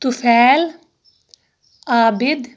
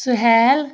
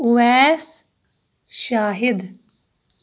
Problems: background sounds at intervals